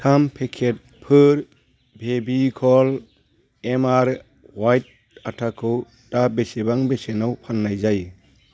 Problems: none marked